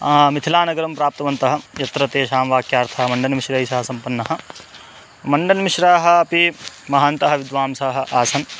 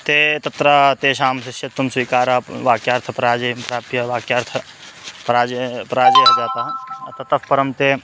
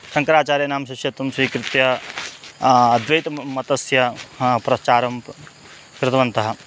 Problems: constant background noise